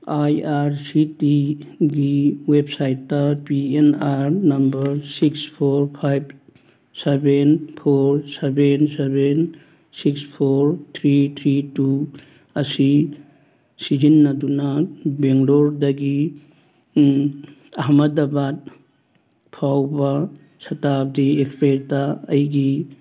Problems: background sounds at intervals